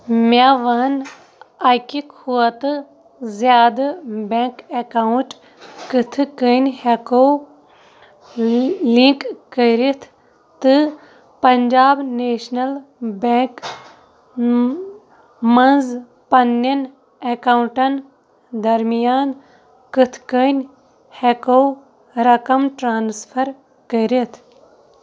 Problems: background sounds at intervals